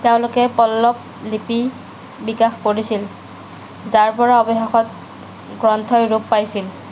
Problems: none marked